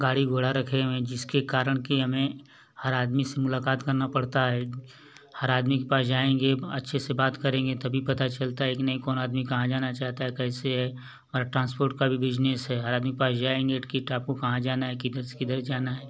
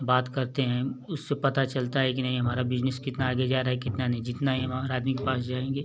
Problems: none marked